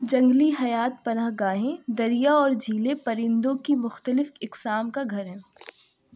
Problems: none marked